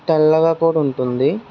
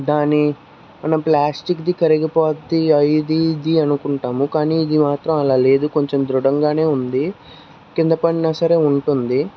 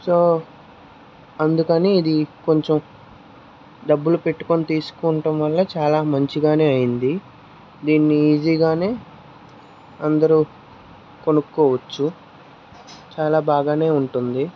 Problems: constant background noise, background conversations at intervals